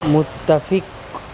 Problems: none marked